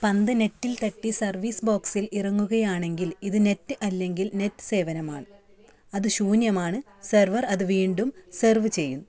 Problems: background conversations at intervals